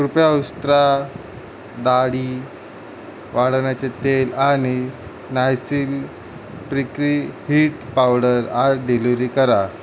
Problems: constant background noise